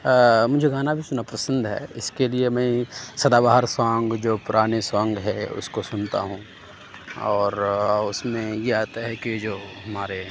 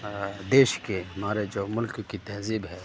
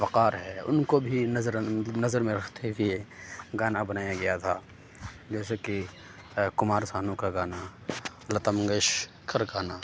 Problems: constant background noise